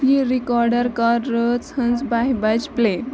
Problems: constant background noise, continuous background conversations